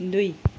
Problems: constant background noise